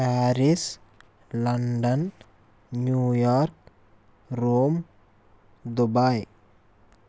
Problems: constant background noise